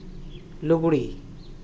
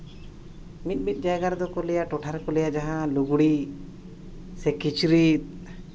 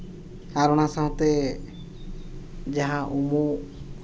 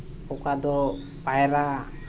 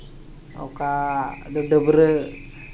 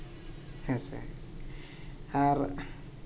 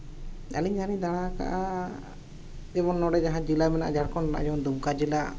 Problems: none marked